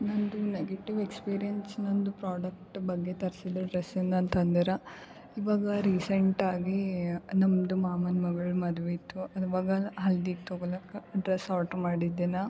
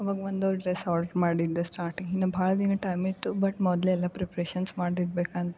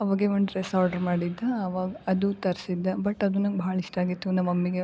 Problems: none marked